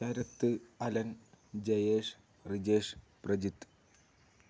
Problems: none marked